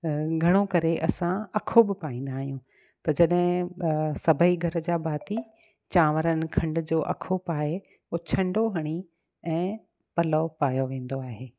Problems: none marked